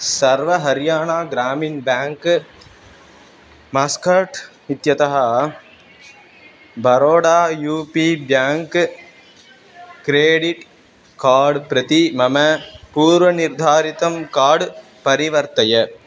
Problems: constant background noise